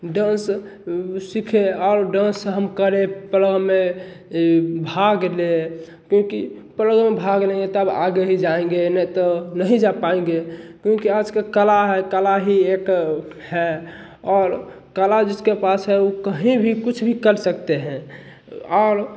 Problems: none marked